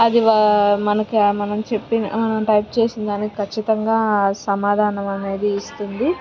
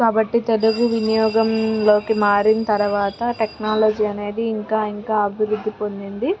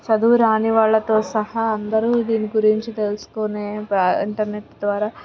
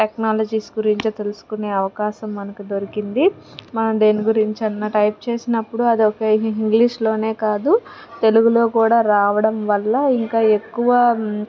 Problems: constant background noise, background conversations at intervals